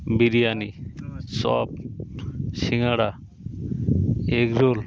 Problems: background sounds at intervals, continuous background conversations